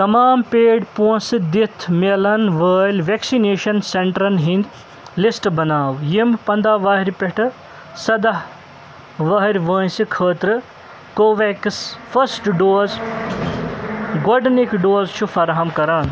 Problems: constant background noise